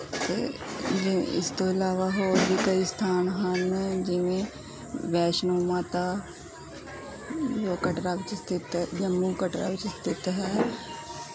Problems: background conversations at intervals